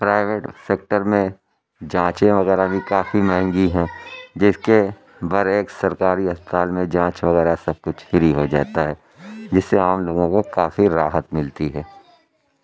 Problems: constant background noise, continuous background conversations